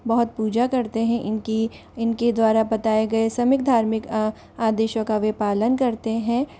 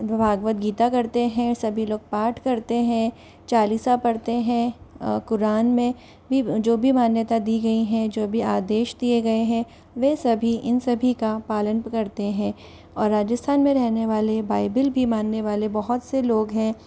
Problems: constant background noise